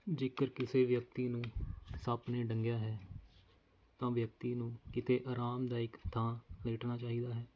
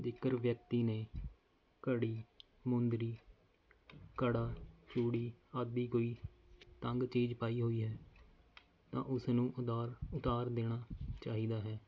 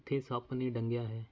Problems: none marked